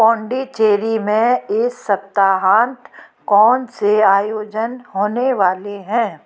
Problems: background sounds at intervals, background conversations at intervals